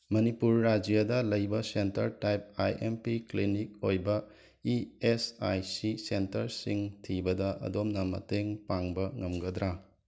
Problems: background sounds at intervals